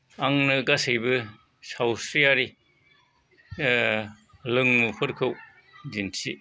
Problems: background conversations at intervals